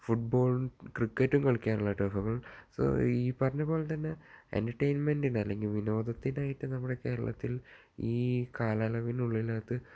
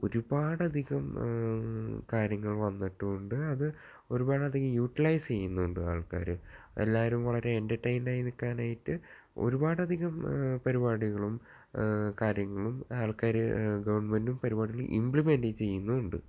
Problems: low volume